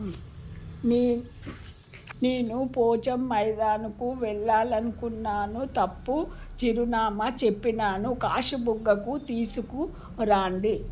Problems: constant background noise